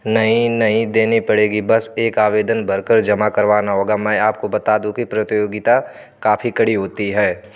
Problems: none marked